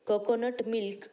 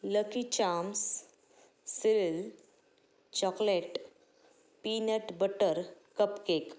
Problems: echo